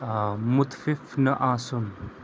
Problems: constant background noise